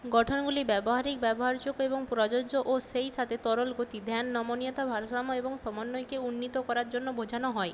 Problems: constant background noise